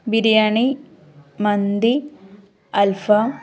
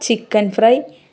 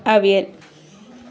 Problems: none marked